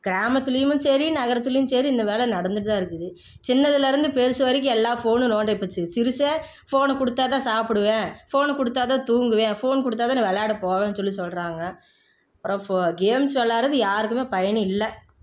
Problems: none marked